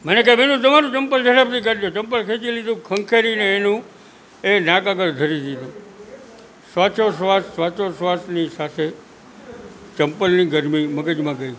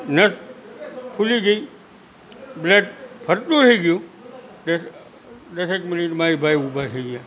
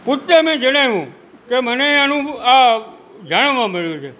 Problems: constant background noise